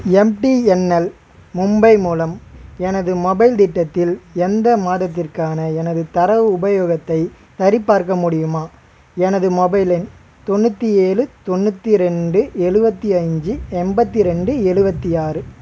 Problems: constant background noise